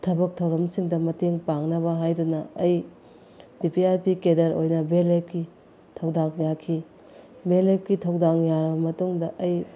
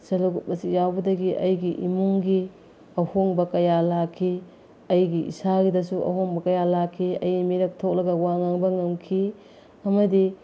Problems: background sounds at intervals